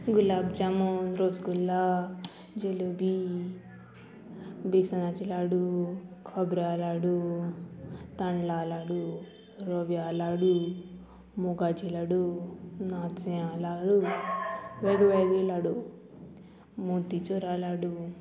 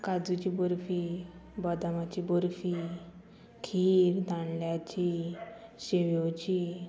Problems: constant background noise